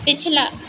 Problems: constant background noise